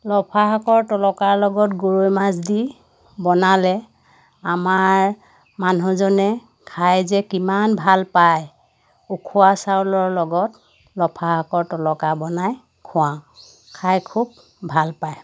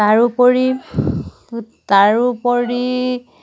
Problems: none marked